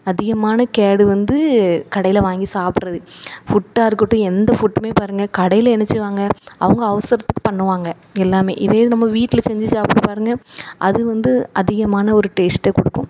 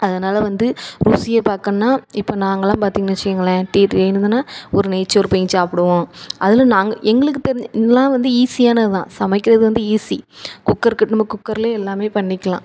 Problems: none marked